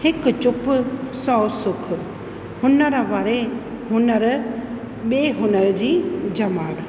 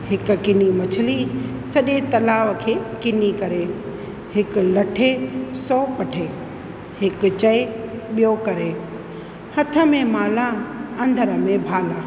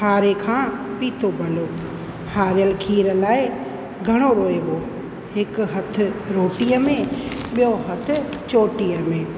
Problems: constant background noise, echo